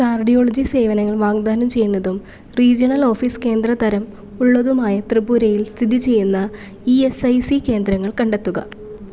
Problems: none marked